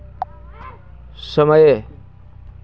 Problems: constant background noise, continuous background conversations